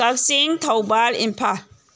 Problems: none marked